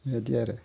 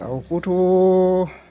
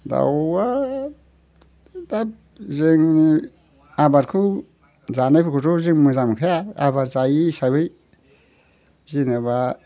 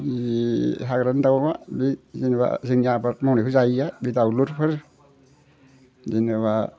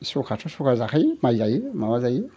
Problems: constant background noise